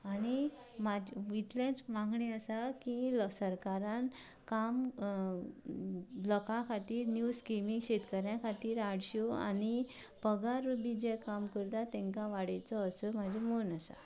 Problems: low volume